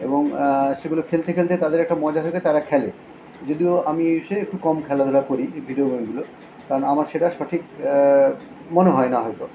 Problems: constant background noise